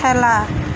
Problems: constant background noise